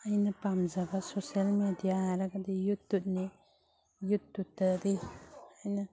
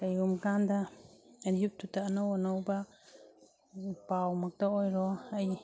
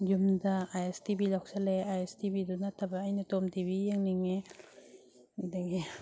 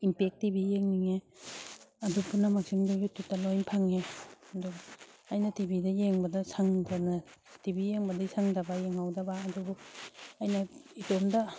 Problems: none marked